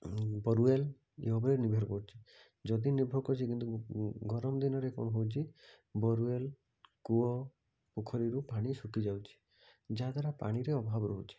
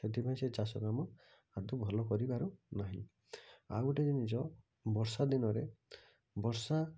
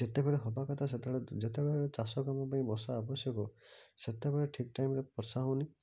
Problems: low volume